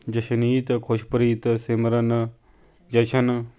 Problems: none marked